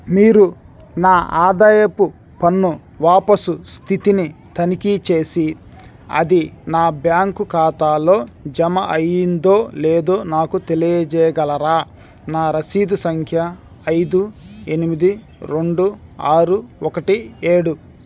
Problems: none marked